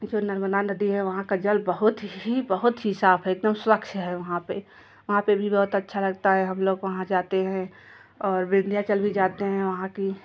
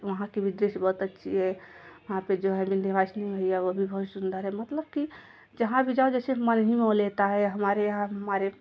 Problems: none marked